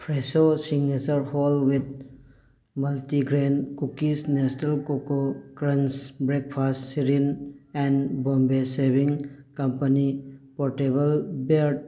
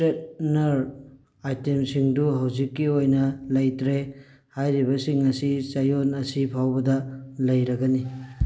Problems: background sounds at intervals